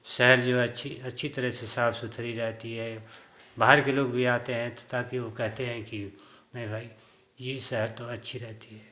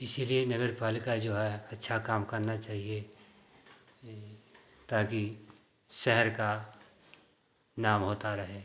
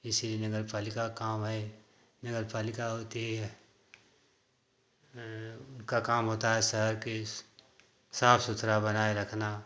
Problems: none marked